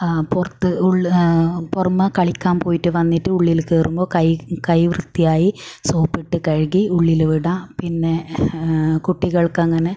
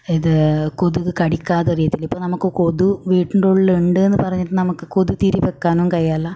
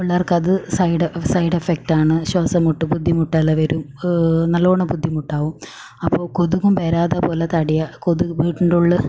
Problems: none marked